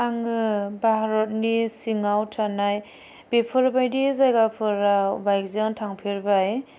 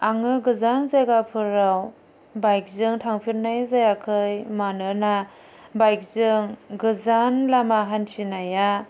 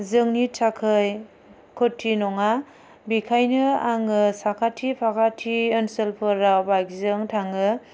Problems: none marked